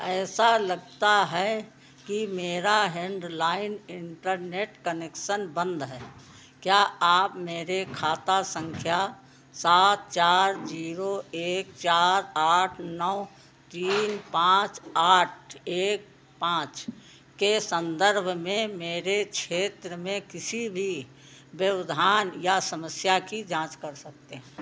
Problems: background sounds at intervals